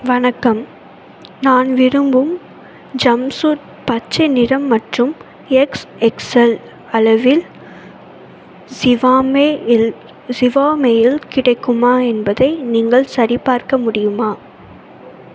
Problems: constant background noise